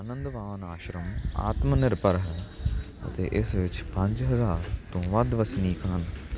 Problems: none marked